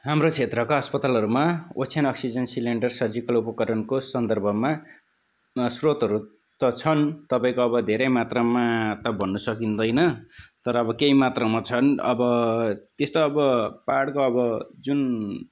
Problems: background sounds at intervals